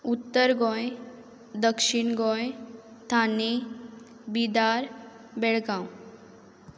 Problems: constant background noise